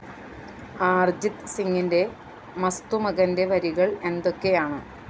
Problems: constant background noise